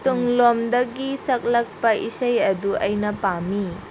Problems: constant background noise